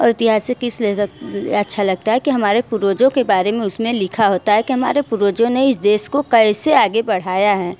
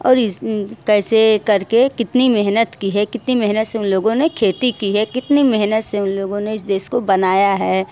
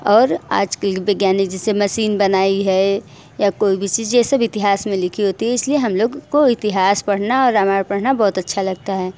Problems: constant background noise, echo